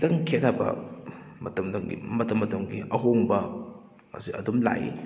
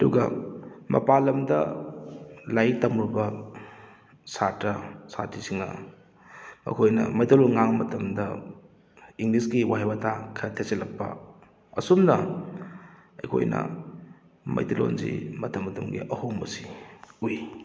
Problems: none marked